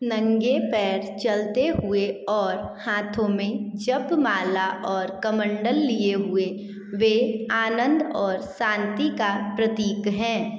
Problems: echo